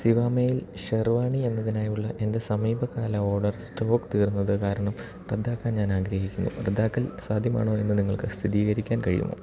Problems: low volume